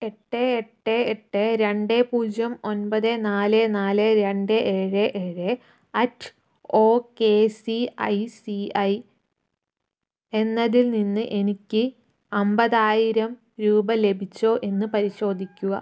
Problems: none marked